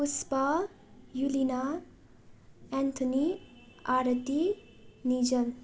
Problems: constant background noise